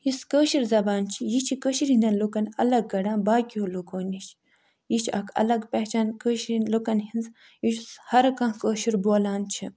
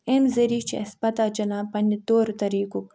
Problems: none marked